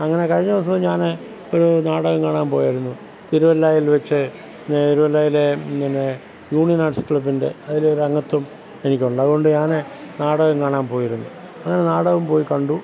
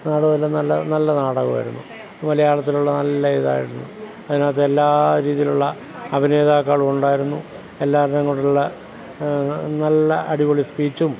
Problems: constant background noise, background conversations at intervals